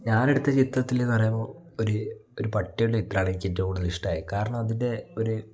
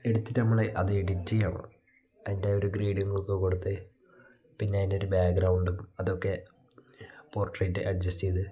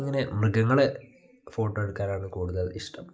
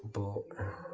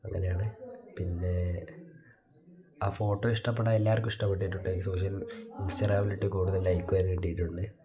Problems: background sounds at intervals